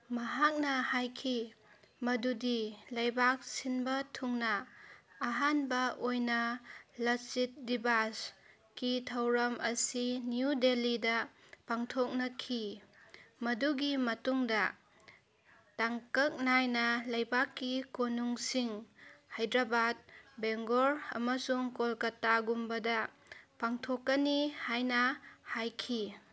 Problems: background sounds at intervals, background conversations at intervals